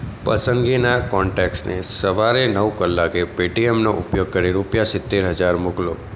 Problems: constant background noise